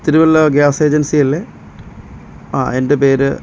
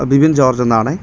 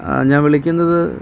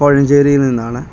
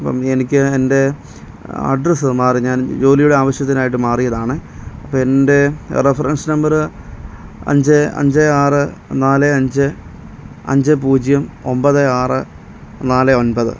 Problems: none marked